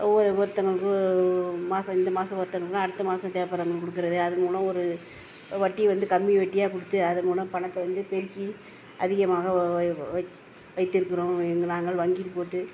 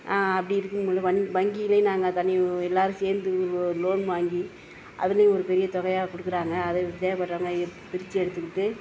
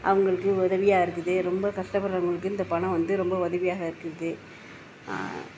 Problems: none marked